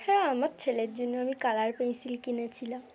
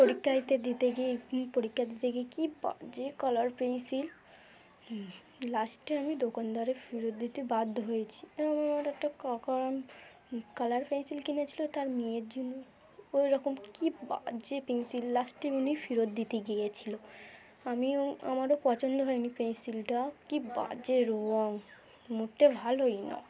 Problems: none marked